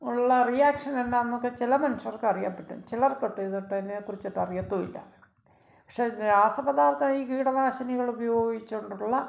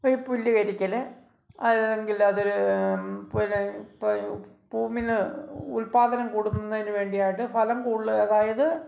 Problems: none marked